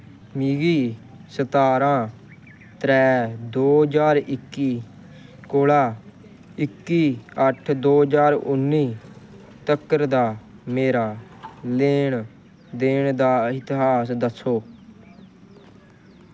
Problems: constant background noise